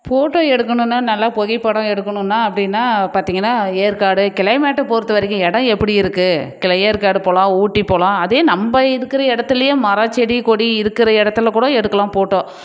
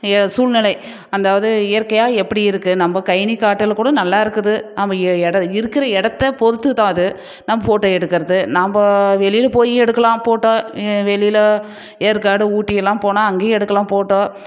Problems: none marked